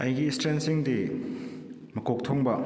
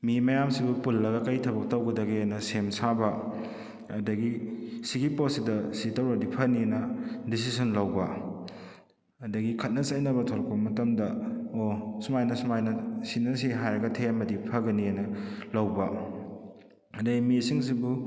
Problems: echo